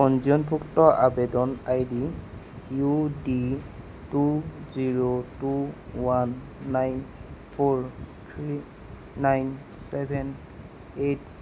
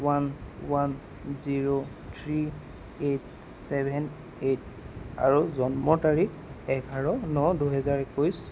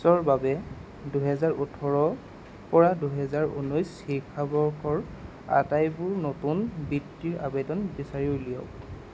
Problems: constant background noise